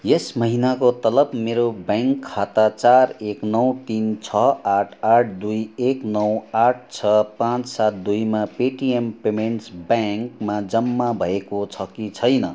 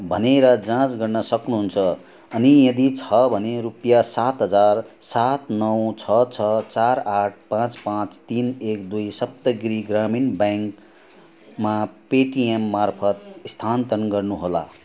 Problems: constant background noise